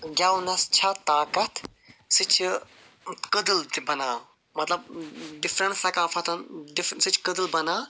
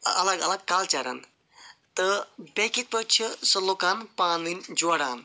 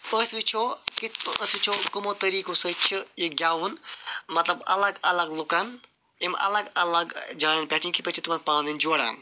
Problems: none marked